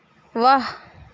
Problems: constant background noise